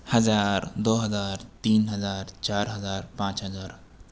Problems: constant background noise